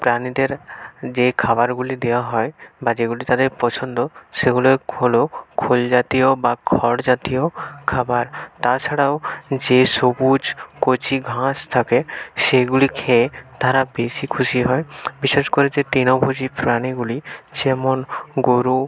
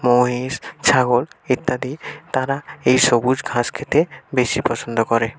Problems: constant background noise, background conversations at intervals